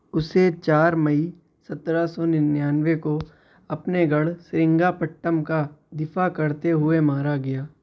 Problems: none marked